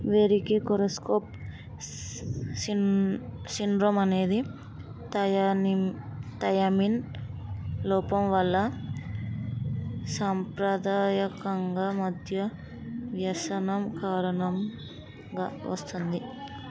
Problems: continuous background conversations